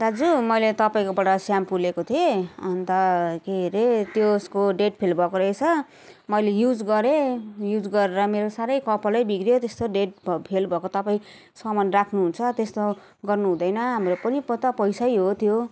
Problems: continuous background conversations